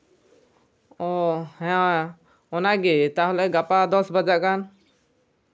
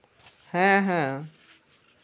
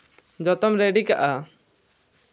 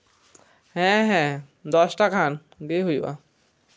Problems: none marked